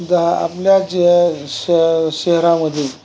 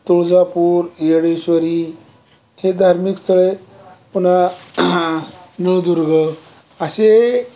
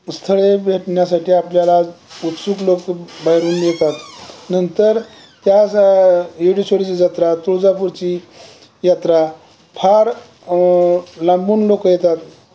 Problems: none marked